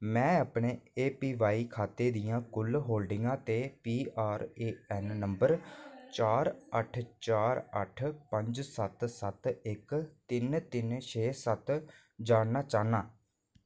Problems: low volume